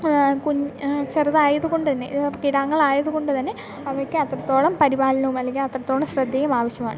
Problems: background sounds at intervals